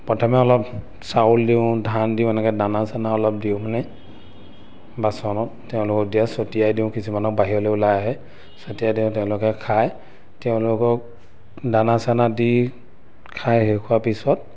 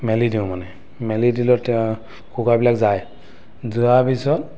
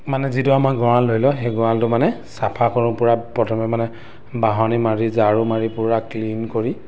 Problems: none marked